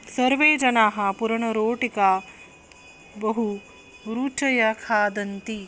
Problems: constant background noise